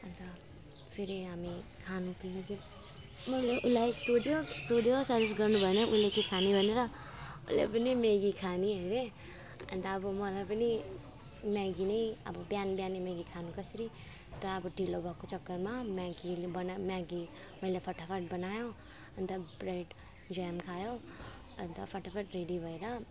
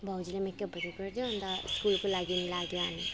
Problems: none marked